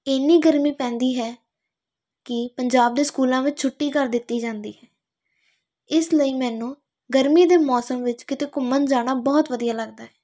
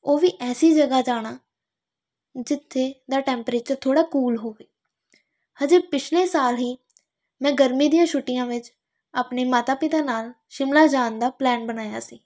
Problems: none marked